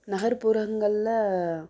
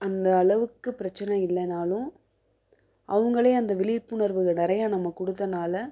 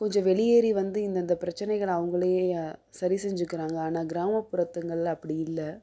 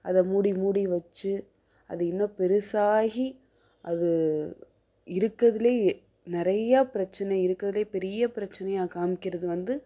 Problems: none marked